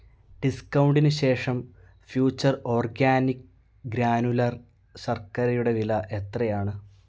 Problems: none marked